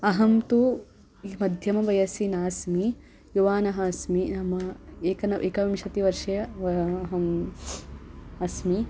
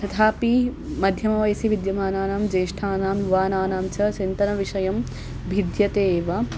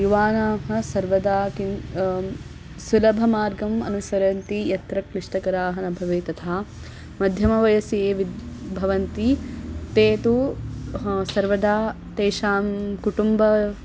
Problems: none marked